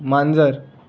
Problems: background sounds at intervals